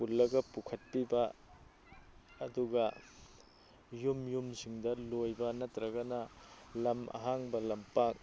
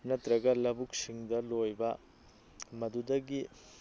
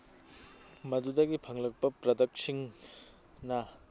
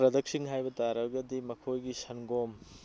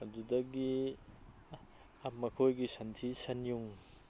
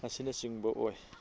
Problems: background sounds at intervals